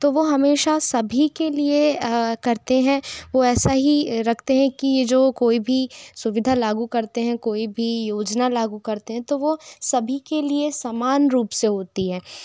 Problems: constant background noise